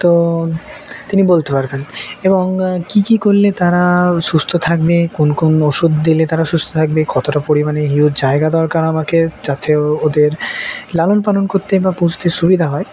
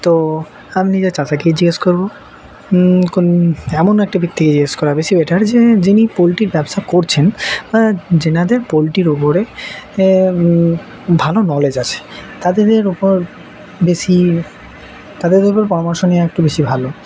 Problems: none marked